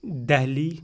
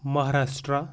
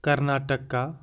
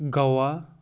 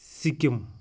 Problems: background sounds at intervals